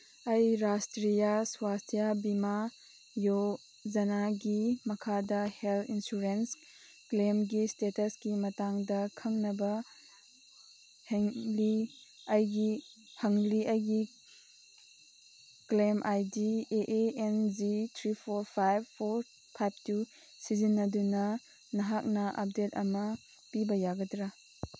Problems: background sounds at intervals